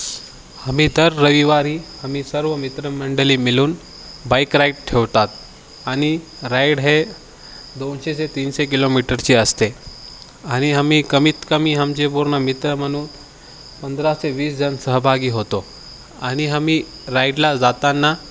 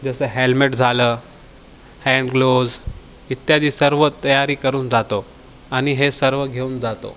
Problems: none marked